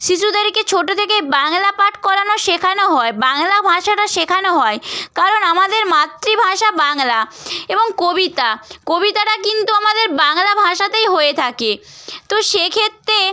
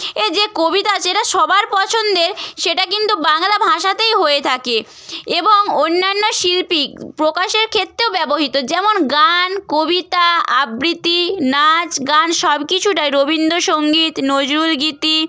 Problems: none marked